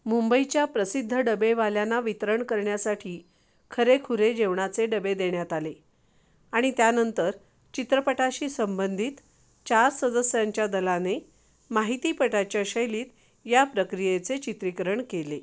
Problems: none marked